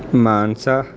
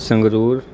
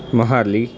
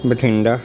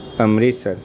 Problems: constant background noise